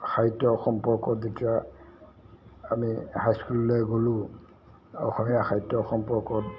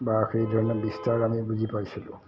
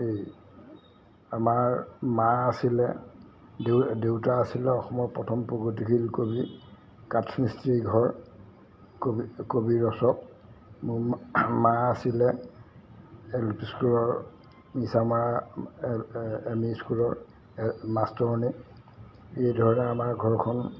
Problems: background sounds at intervals